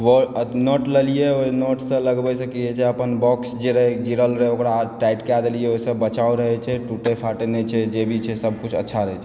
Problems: background sounds at intervals